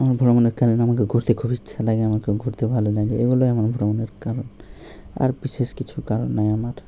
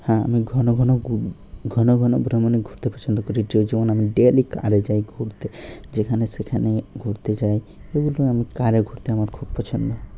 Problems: background sounds at intervals